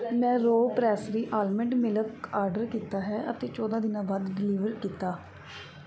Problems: background sounds at intervals